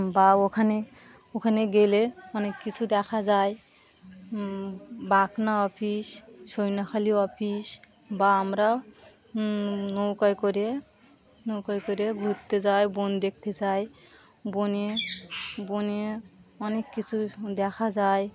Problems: continuous background conversations